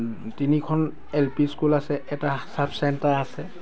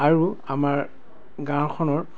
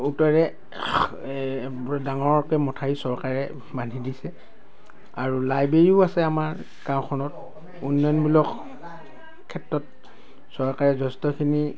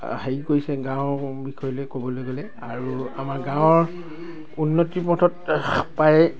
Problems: constant background noise